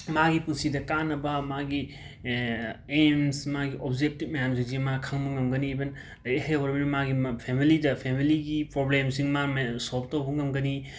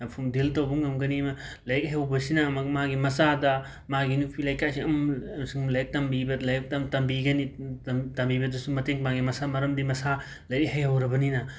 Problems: background sounds at intervals, background conversations at intervals